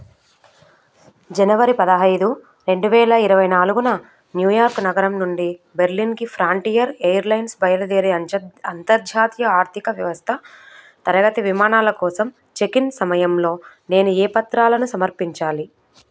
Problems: none marked